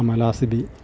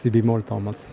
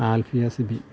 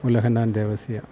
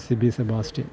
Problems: background sounds at intervals